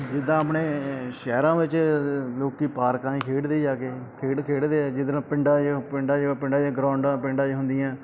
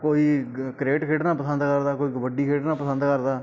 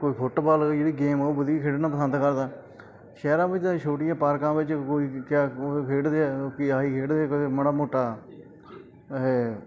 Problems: background sounds at intervals, background conversations at intervals